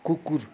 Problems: continuous background conversations